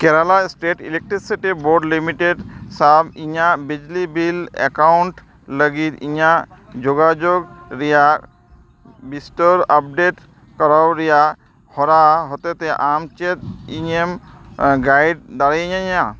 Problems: constant background noise